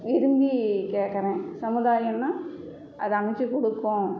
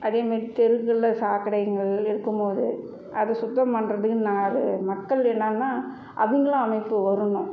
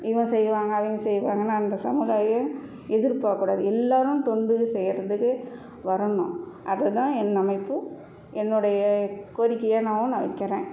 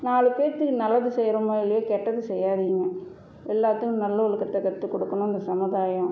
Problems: none marked